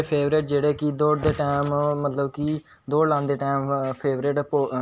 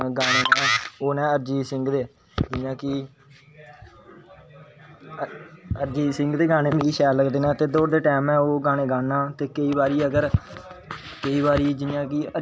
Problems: background sounds at intervals